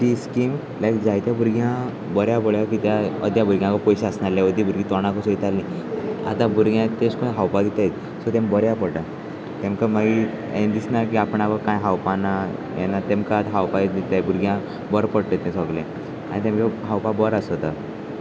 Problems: constant background noise, continuous background conversations